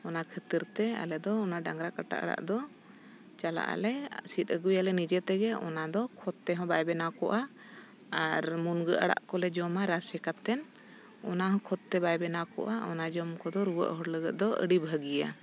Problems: background sounds at intervals